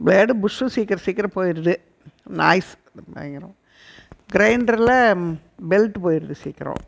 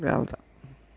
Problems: background sounds at intervals